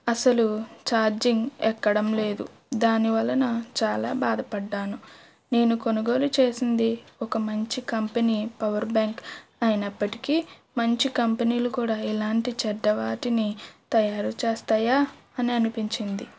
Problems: background sounds at intervals